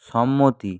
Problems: none marked